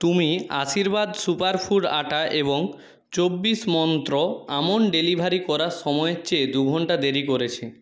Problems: background conversations at intervals